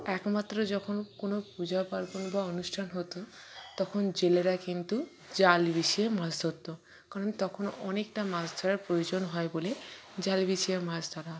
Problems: background conversations at intervals